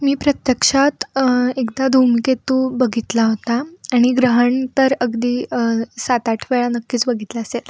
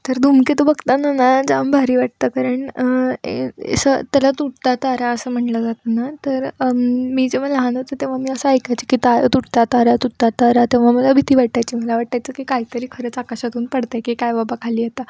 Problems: background sounds at intervals, background conversations at intervals